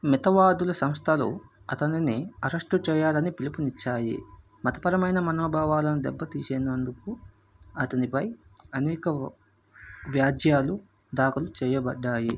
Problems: background sounds at intervals